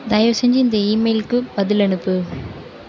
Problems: constant background noise